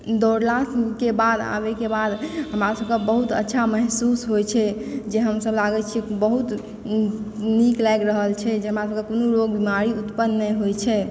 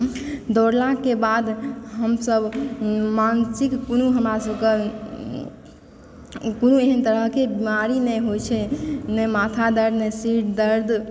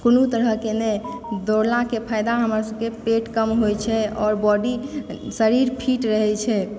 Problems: background sounds at intervals